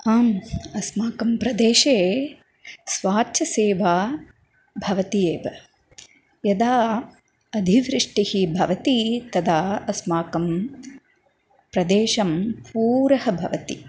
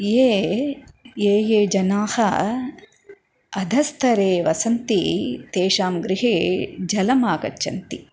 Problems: none marked